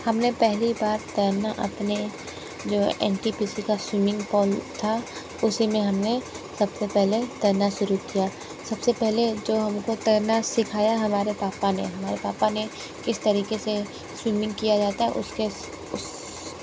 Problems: constant background noise